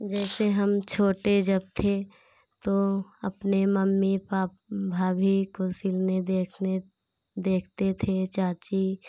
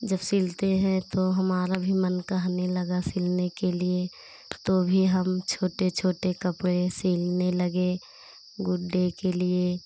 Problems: none marked